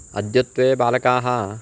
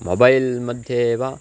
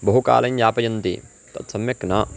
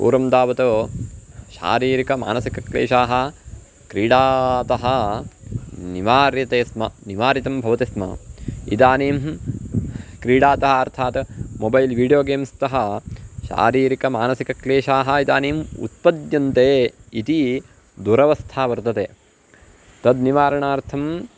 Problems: constant background noise